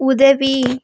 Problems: constant background noise